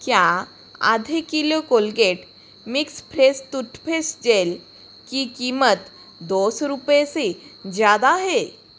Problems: constant background noise